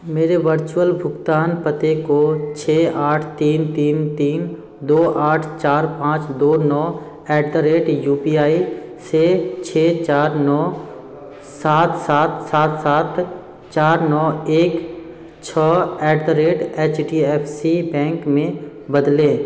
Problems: background sounds at intervals